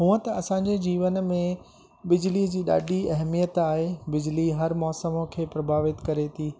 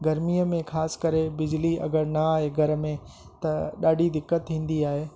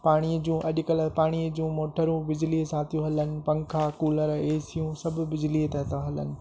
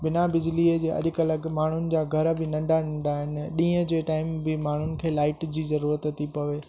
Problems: constant background noise